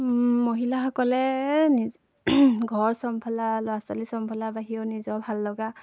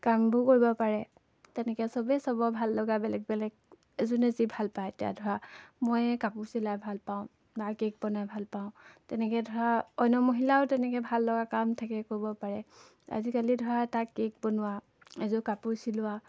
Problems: constant background noise